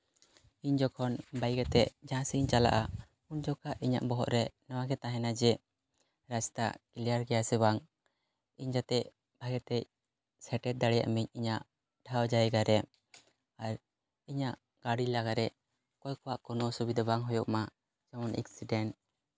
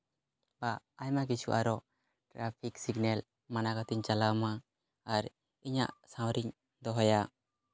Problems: background sounds at intervals